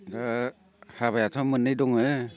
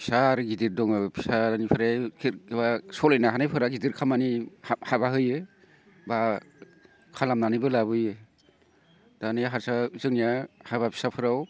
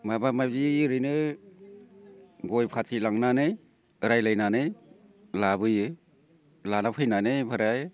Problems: constant background noise